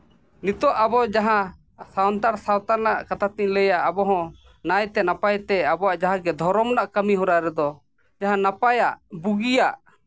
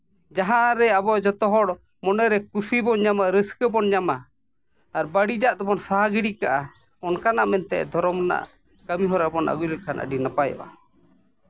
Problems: none marked